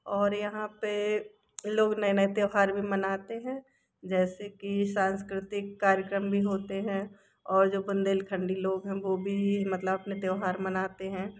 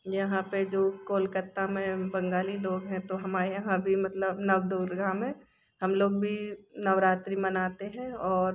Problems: background sounds at intervals